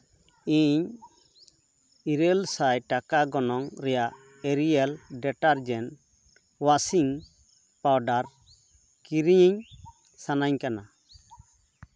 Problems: none marked